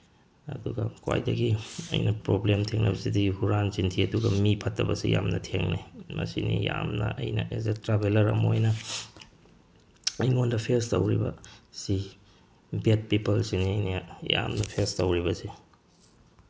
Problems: background sounds at intervals